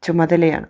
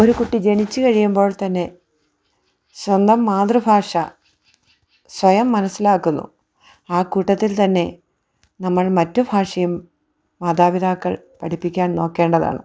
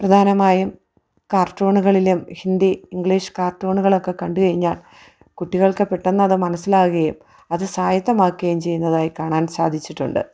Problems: none marked